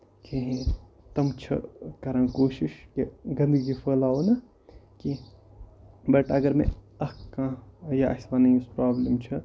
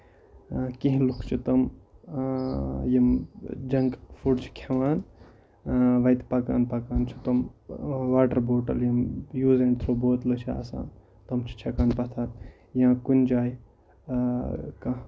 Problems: constant background noise